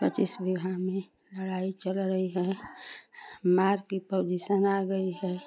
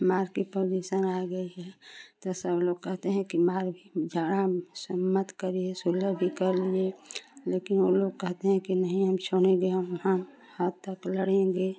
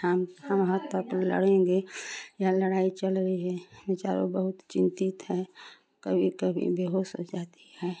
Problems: constant background noise, continuous background conversations